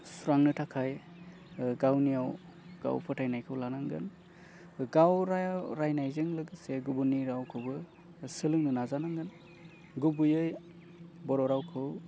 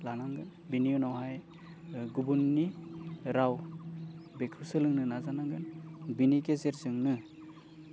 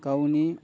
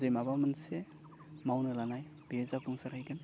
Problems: constant background noise